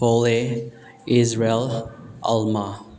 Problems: low volume